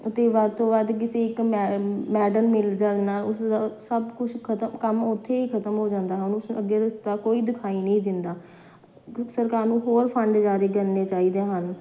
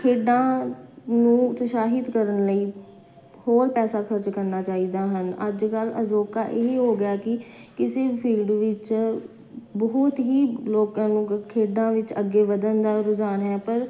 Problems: none marked